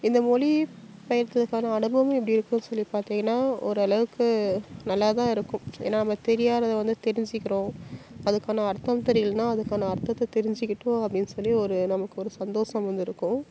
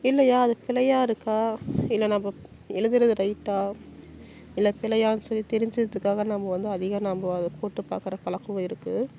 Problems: none marked